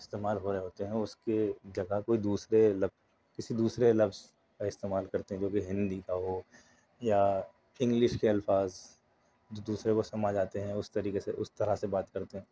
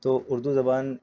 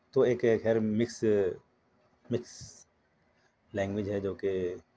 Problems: none marked